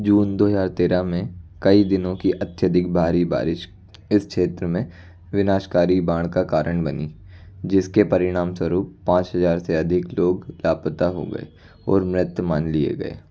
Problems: constant background noise